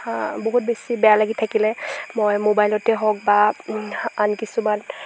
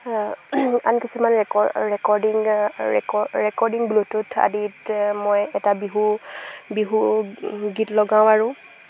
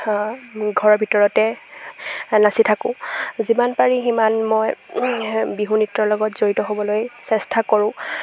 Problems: background sounds at intervals